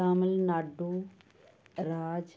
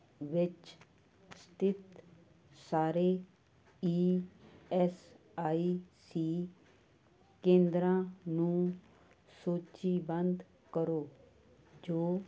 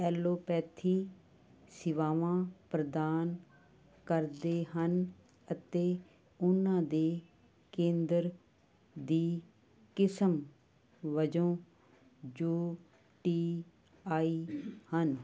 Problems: constant background noise